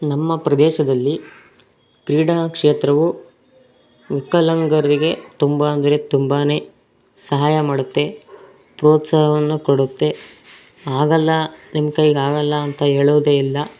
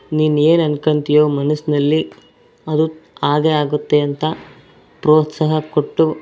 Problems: background sounds at intervals